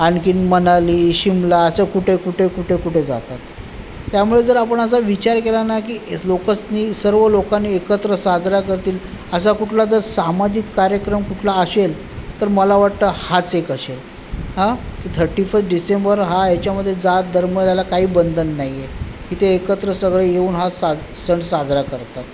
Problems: background sounds at intervals